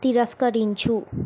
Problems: constant background noise